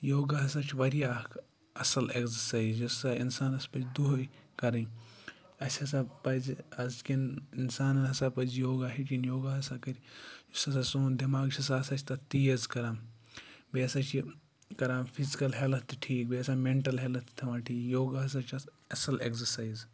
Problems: none marked